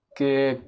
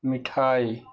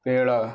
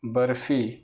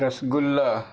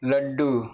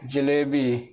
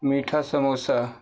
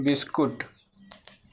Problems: none marked